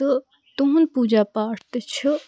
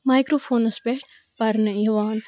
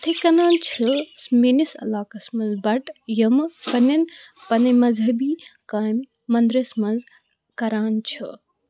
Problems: constant background noise